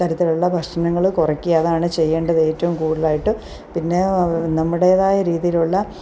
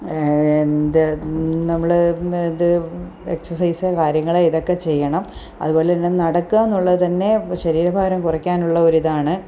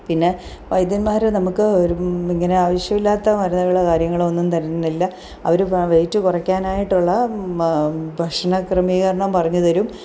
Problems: none marked